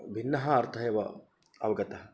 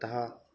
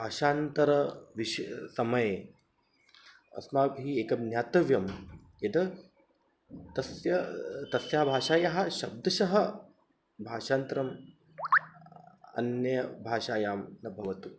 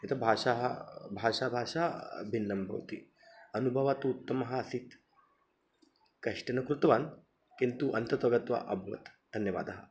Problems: none marked